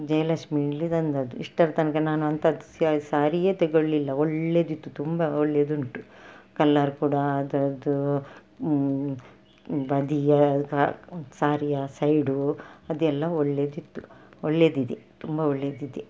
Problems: background sounds at intervals